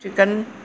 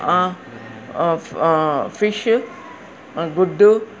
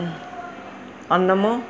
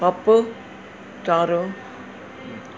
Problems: none marked